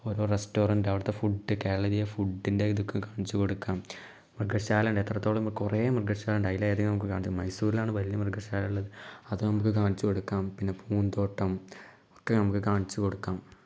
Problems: low volume